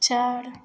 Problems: background sounds at intervals